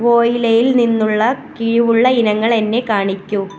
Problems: background sounds at intervals